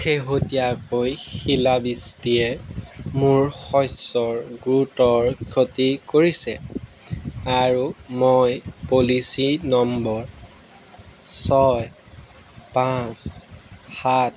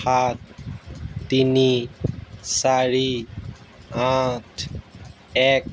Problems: none marked